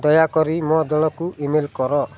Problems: constant background noise, continuous background conversations